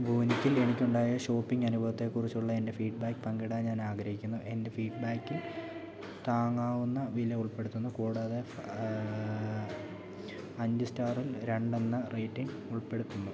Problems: continuous background conversations